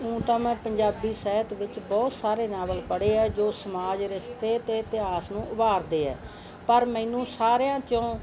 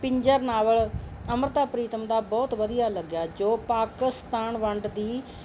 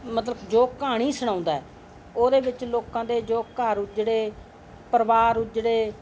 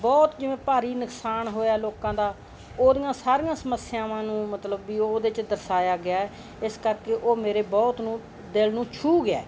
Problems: constant background noise